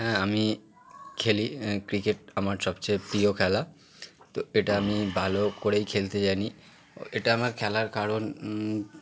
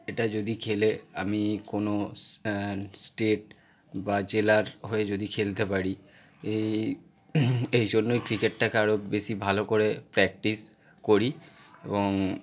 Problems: continuous background conversations